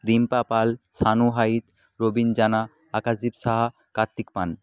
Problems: none marked